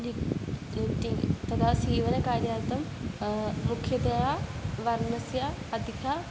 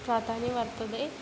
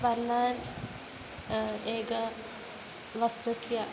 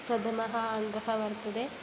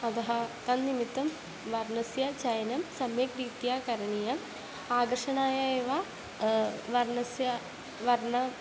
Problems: constant background noise